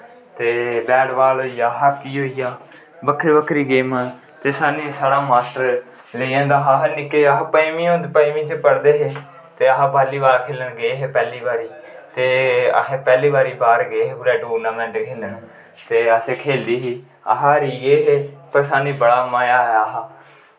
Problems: constant background noise, echo